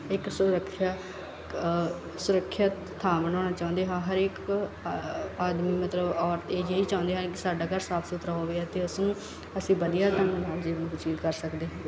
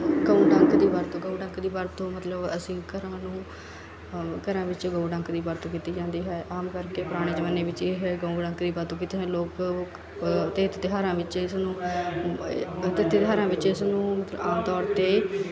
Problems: none marked